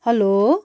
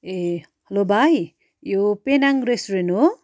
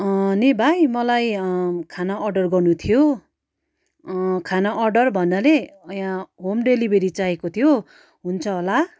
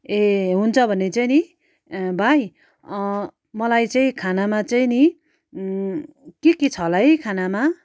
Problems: none marked